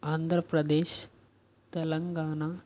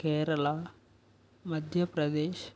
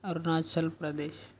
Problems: none marked